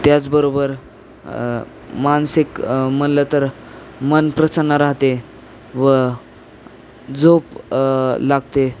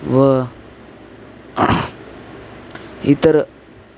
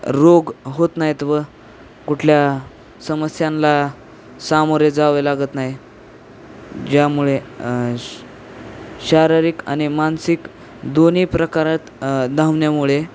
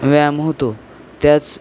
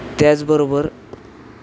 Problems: constant background noise